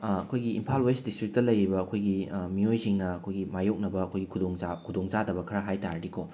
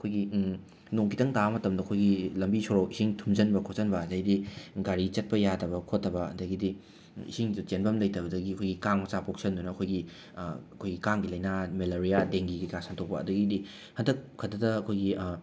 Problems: background sounds at intervals